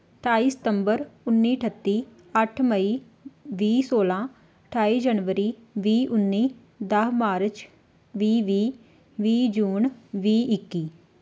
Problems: background sounds at intervals